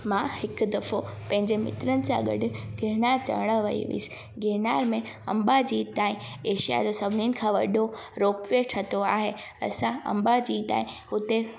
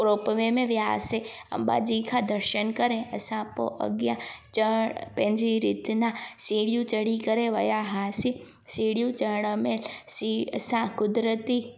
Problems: constant background noise, echo